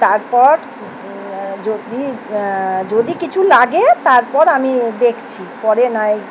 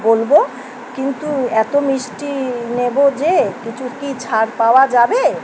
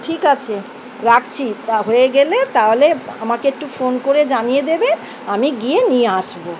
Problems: constant background noise